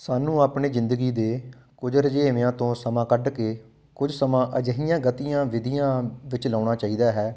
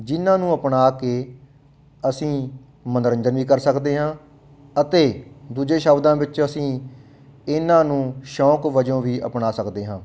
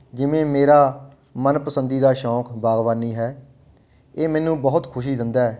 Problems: background sounds at intervals